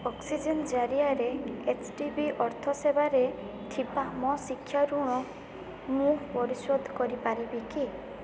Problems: none marked